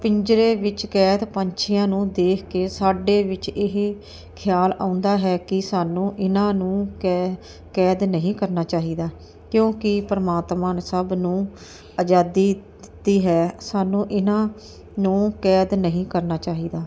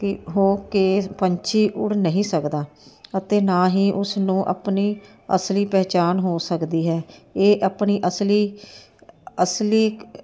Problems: none marked